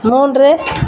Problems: constant background noise